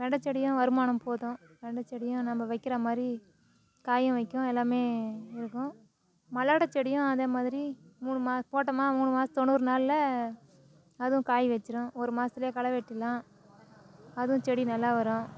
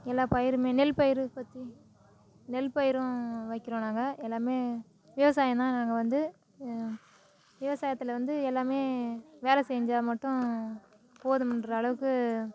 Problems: none marked